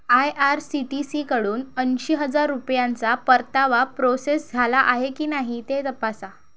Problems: none marked